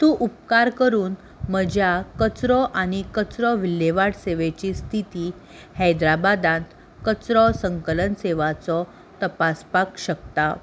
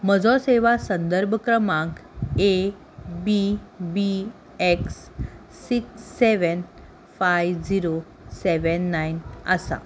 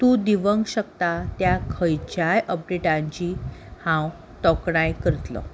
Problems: constant background noise